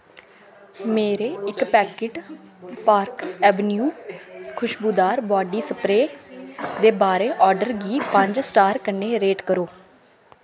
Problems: constant background noise, background conversations at intervals